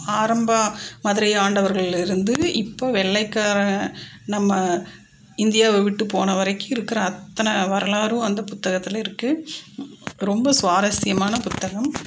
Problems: none marked